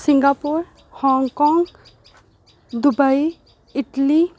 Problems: none marked